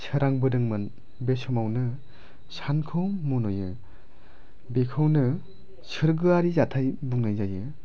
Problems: none marked